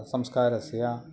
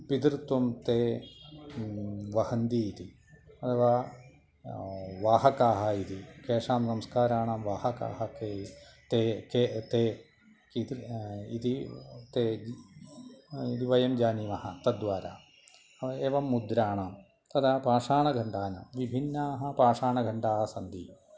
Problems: none marked